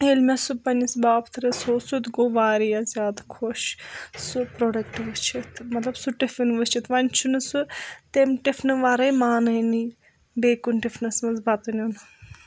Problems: none marked